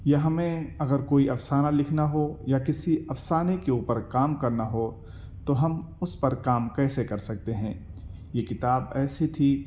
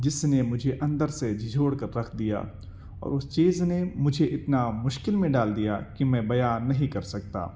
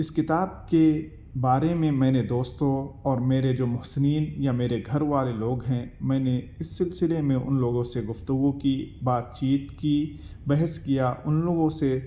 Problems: none marked